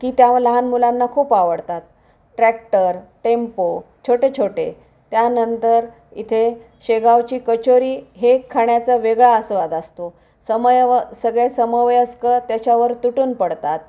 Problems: none marked